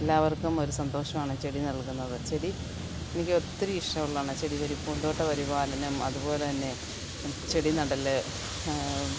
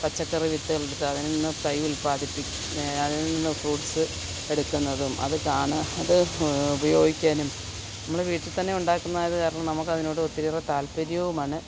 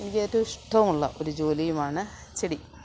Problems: constant background noise, low volume